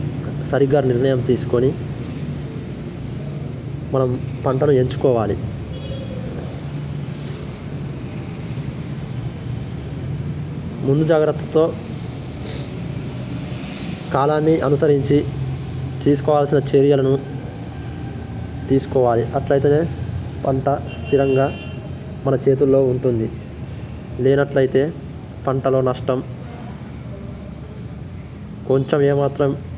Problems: constant background noise